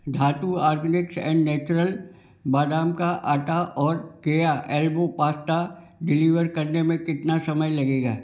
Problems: none marked